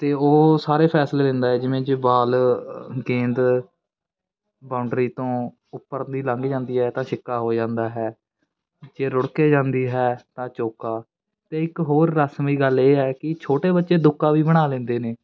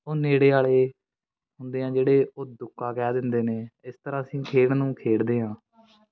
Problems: continuous background conversations